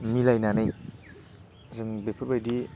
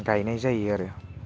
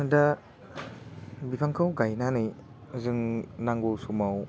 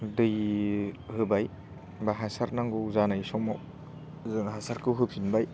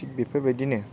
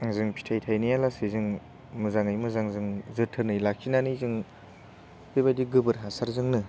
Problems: low volume